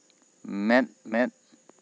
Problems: constant background noise